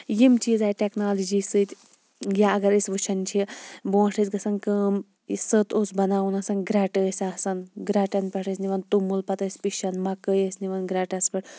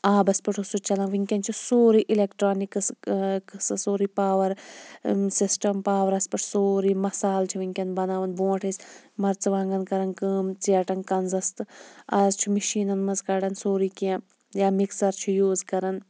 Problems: background sounds at intervals